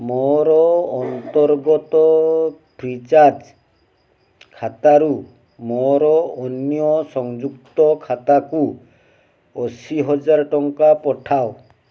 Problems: background sounds at intervals